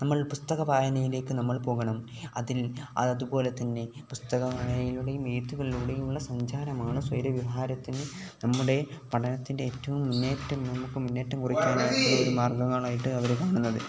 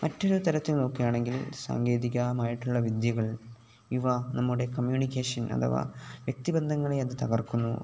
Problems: background sounds at intervals, background conversations at intervals